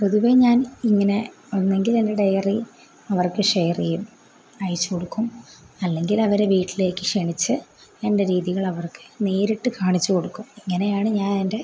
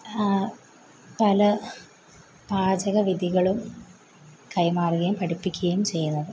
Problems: background sounds at intervals